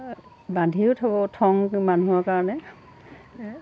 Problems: background sounds at intervals